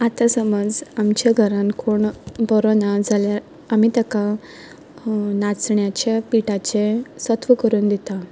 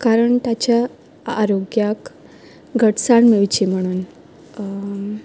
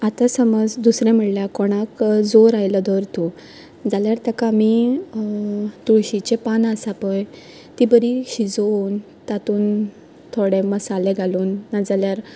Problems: none marked